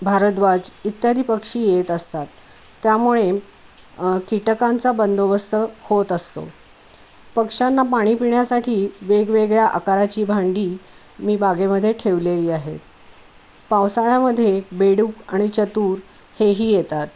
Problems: constant background noise